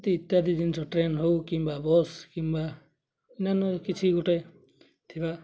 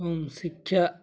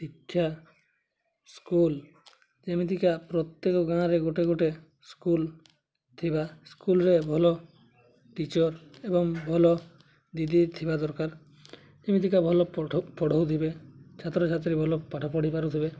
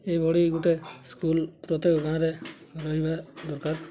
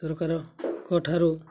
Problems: constant background noise, continuous background conversations